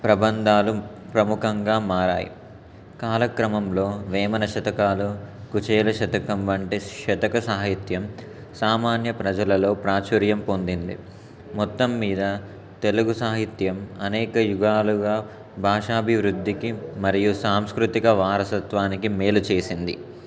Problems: constant background noise